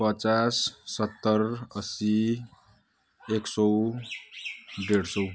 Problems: none marked